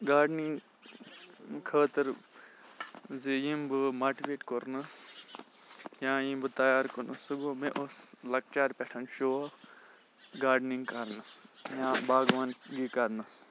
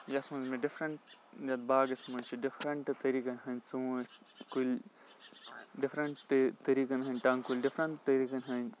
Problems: constant background noise